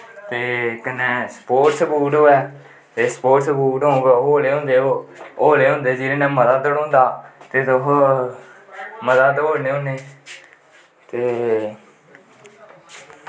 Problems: none marked